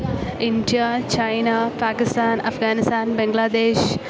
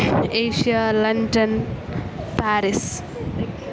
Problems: none marked